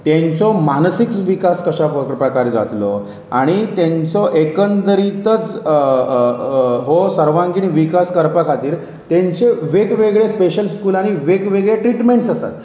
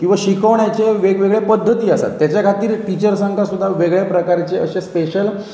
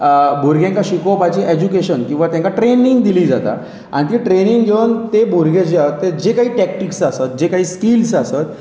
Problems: background sounds at intervals